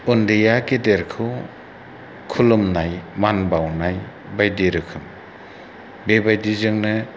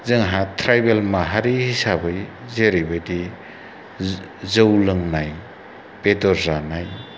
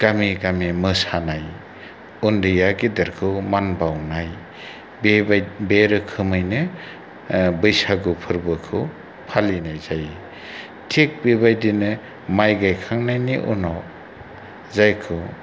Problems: low volume